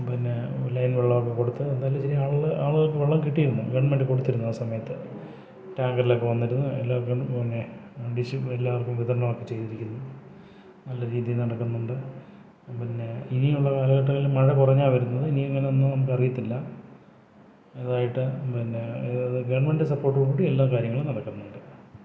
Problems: low volume